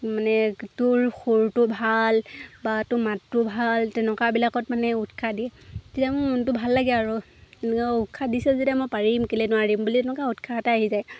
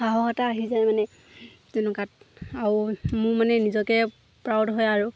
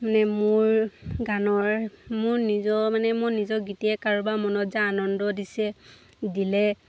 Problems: constant background noise